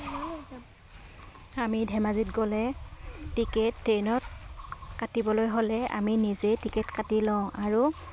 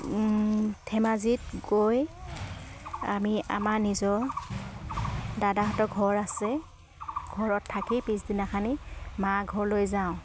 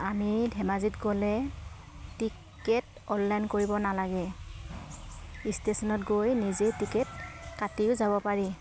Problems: background sounds at intervals